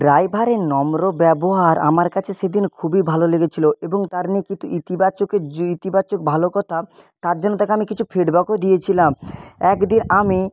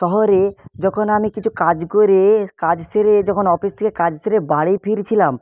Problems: constant background noise